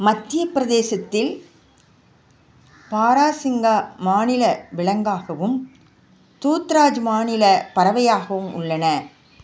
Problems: background sounds at intervals